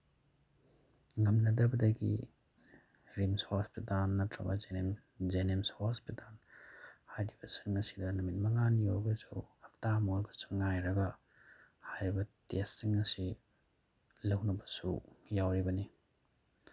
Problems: none marked